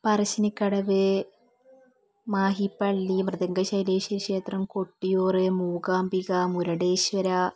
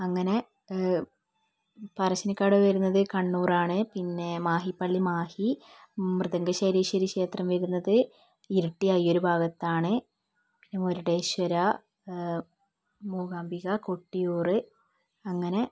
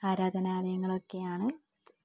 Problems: low volume